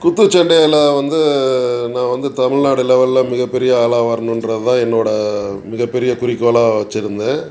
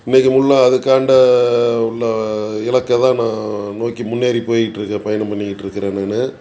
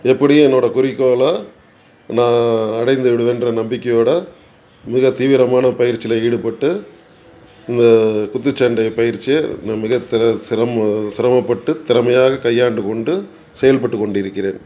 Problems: background sounds at intervals